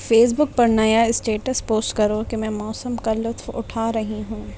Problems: constant background noise